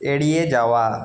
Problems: echo